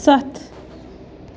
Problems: constant background noise